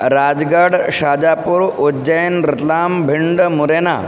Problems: constant background noise